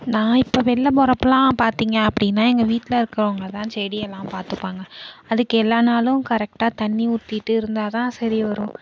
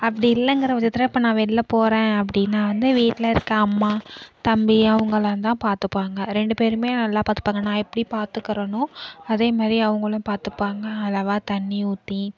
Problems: background sounds at intervals